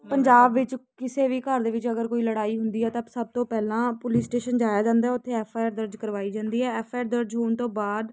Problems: constant background noise